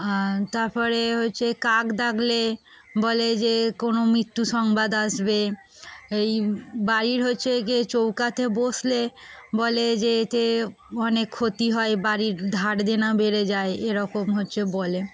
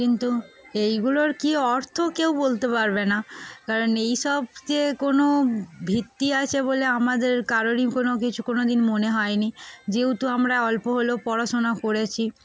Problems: constant background noise, background conversations at intervals